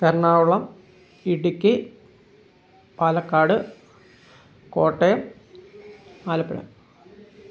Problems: background sounds at intervals